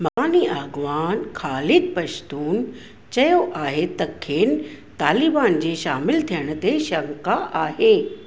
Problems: none marked